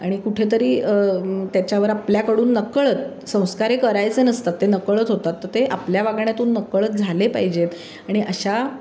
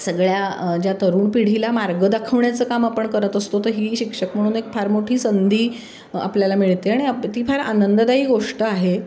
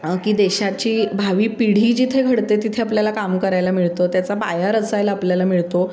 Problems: constant background noise, background conversations at intervals